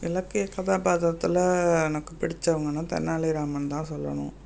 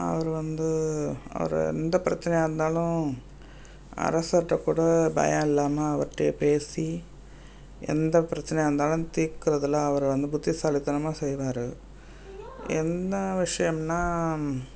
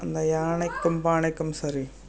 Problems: background sounds at intervals